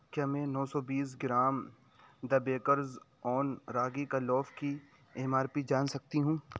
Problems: background sounds at intervals